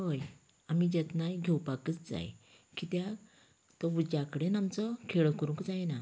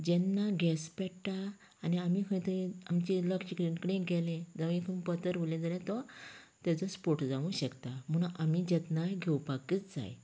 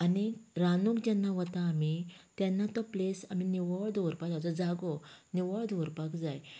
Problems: continuous background conversations